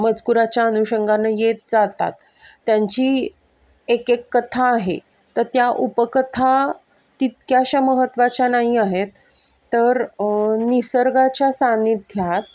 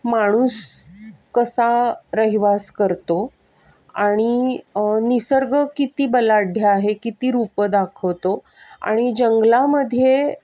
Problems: constant background noise